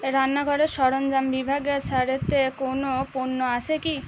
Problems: constant background noise, background conversations at intervals